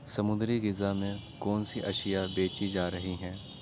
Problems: constant background noise